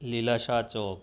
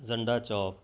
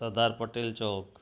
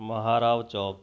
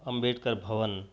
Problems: constant background noise